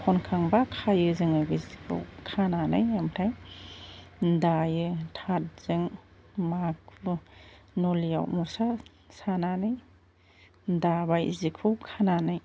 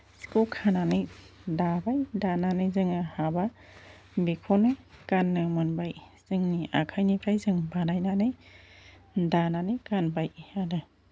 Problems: constant background noise